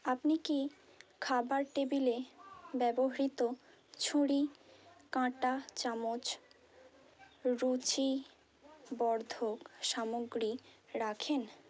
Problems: constant background noise